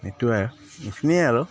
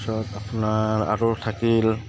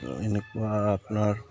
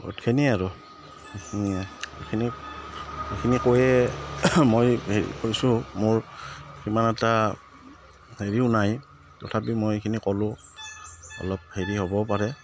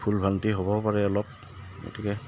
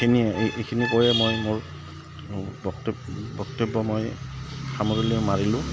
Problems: none marked